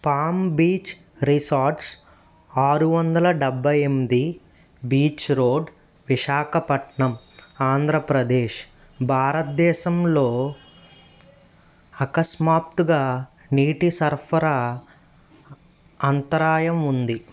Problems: none marked